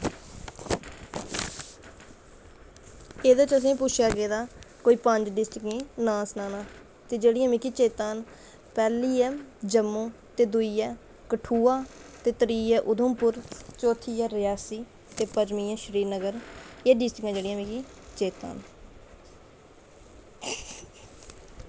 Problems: constant background noise